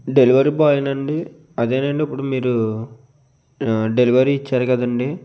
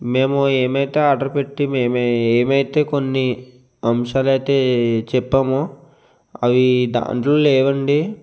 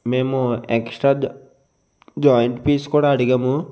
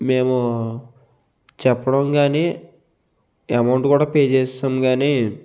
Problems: constant background noise